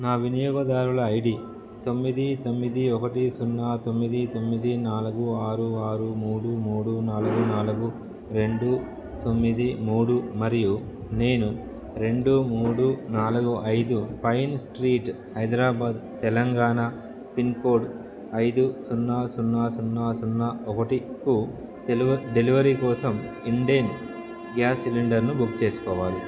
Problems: background sounds at intervals, background conversations at intervals